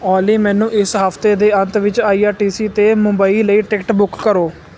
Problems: none marked